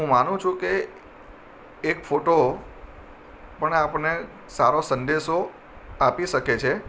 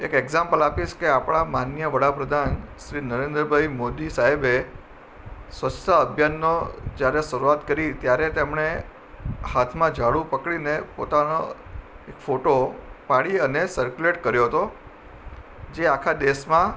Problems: none marked